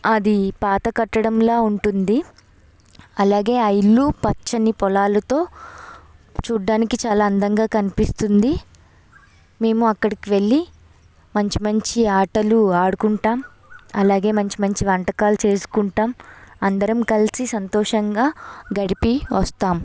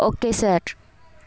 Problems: background sounds at intervals